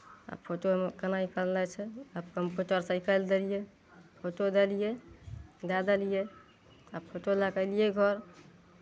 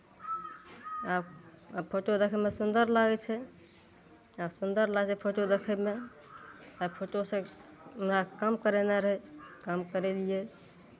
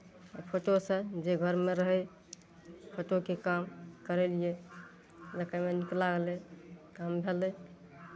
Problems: none marked